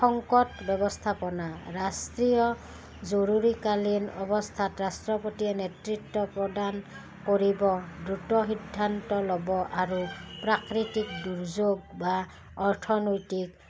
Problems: background sounds at intervals